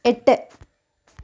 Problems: none marked